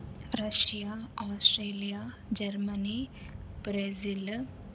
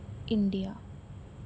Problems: none marked